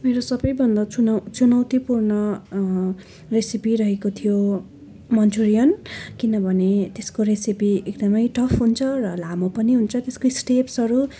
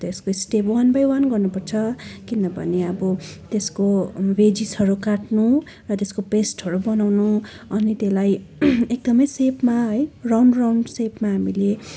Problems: constant background noise, continuous background conversations